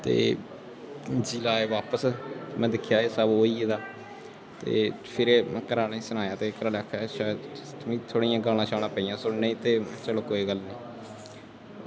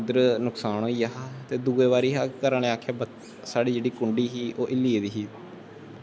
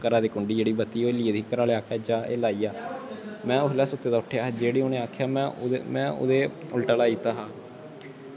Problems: constant background noise